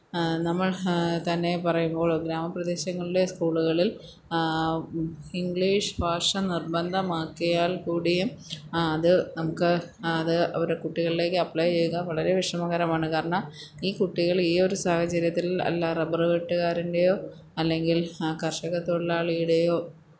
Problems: background sounds at intervals